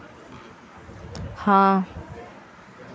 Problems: constant background noise